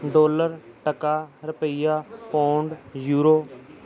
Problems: continuous background conversations